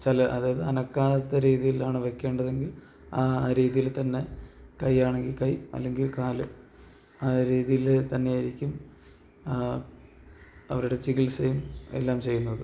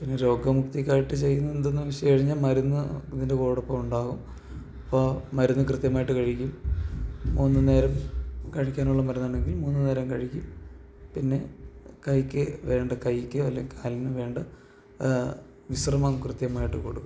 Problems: background sounds at intervals